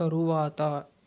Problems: constant background noise